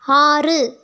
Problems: none marked